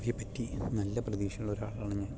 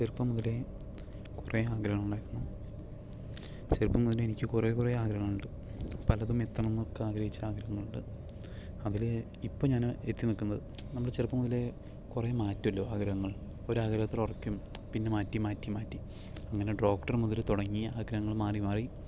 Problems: none marked